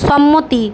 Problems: background conversations at intervals